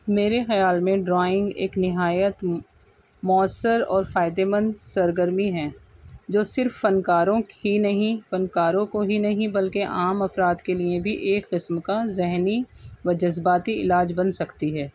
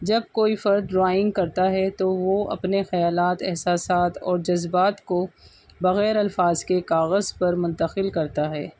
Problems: background sounds at intervals